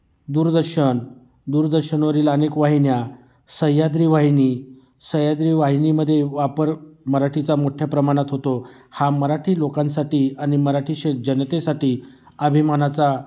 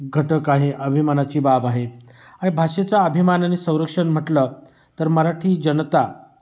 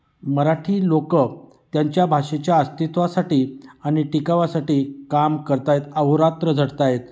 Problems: constant background noise, echo